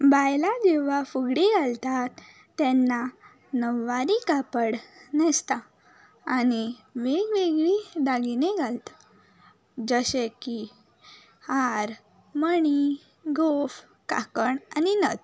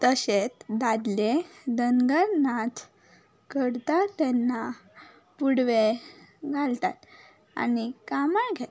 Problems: background sounds at intervals